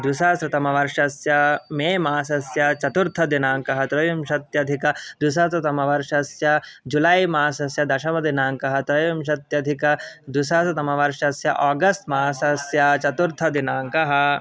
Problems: background sounds at intervals